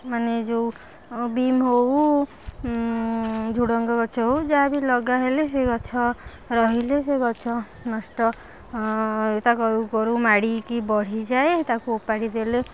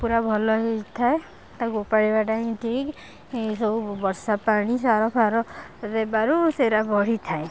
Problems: none marked